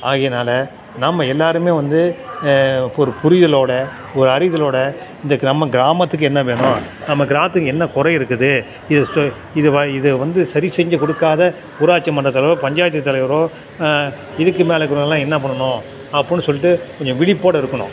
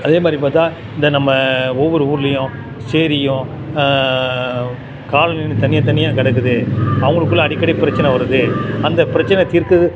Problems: constant background noise, continuous background conversations